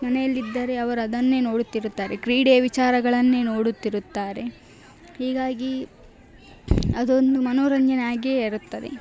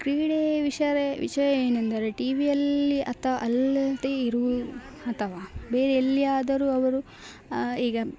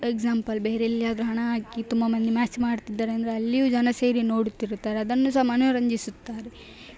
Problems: background sounds at intervals